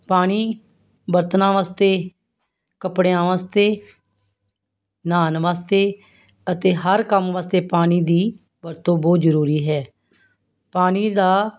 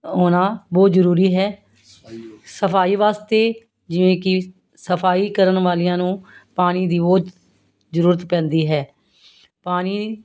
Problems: constant background noise